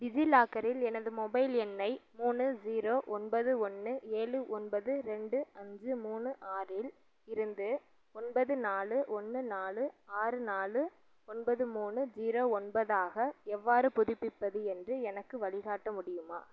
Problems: low volume